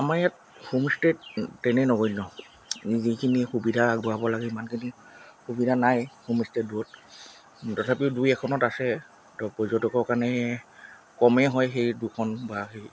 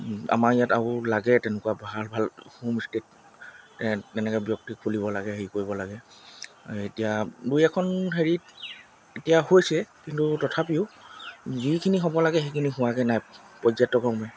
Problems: constant background noise